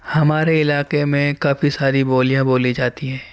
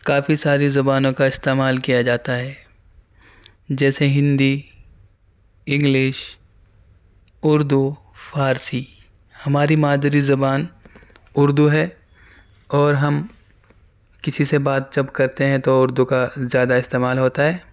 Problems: none marked